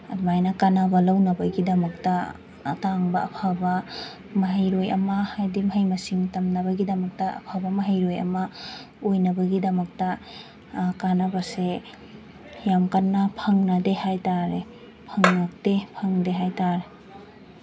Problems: constant background noise